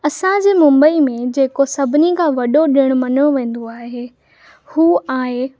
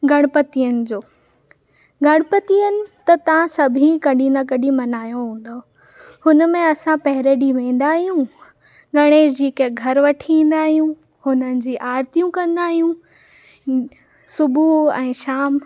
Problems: background sounds at intervals